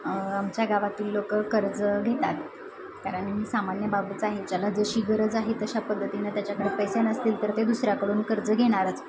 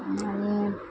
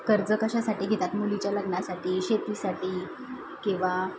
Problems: constant background noise, continuous background conversations